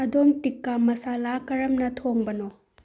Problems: low volume